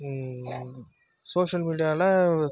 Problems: background sounds at intervals